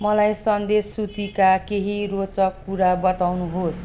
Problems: constant background noise